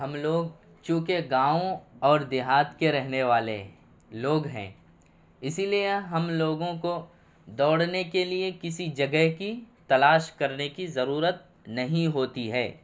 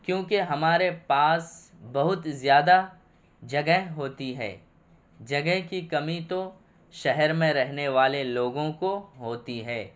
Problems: none marked